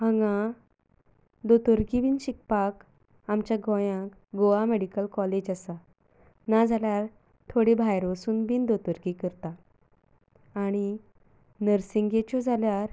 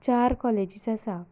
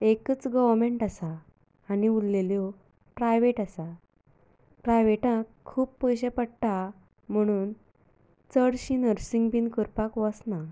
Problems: none marked